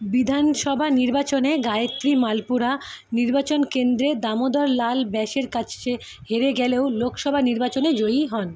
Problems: constant background noise